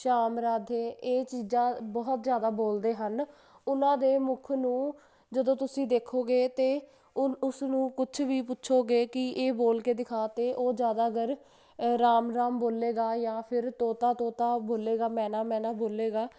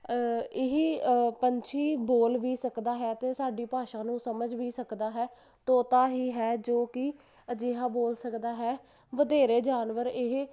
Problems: constant background noise